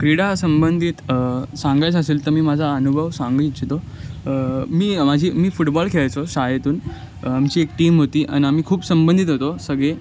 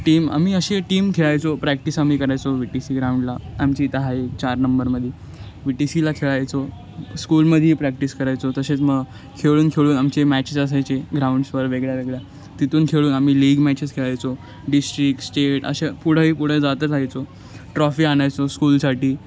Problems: none marked